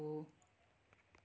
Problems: none marked